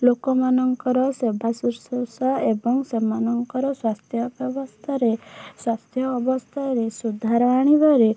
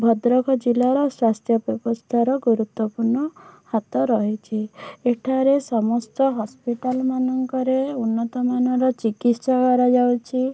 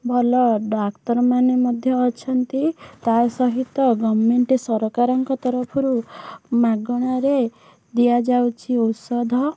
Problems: background sounds at intervals